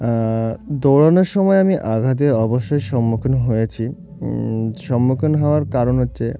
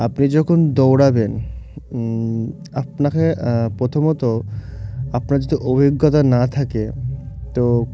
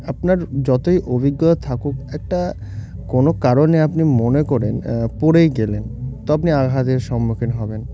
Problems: none marked